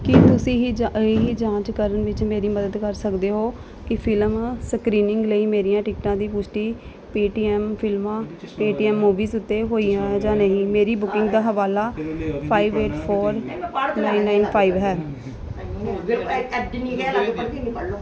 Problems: background sounds at intervals